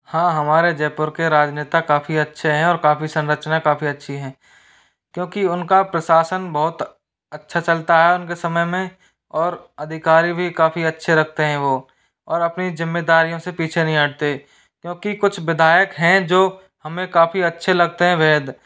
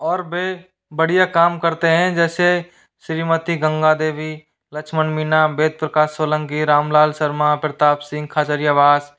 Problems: background sounds at intervals